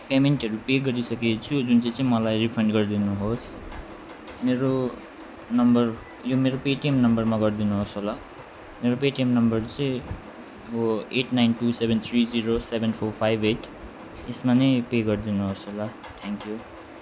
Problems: background sounds at intervals